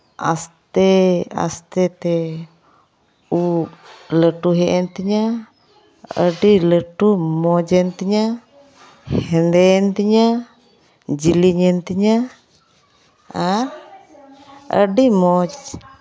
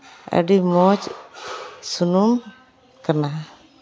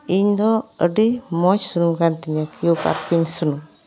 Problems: background sounds at intervals, background conversations at intervals